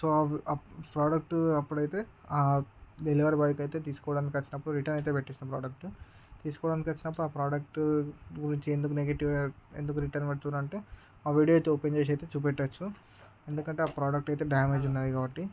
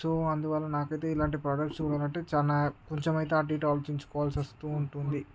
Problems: constant background noise